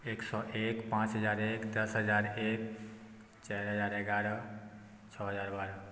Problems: none marked